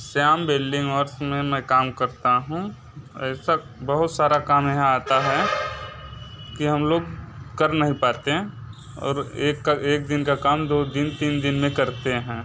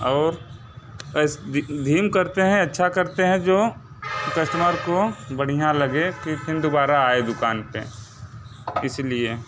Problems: none marked